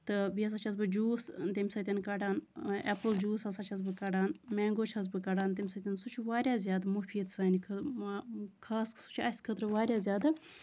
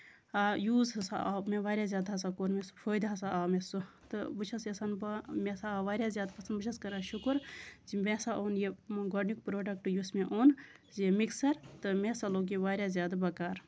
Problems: none marked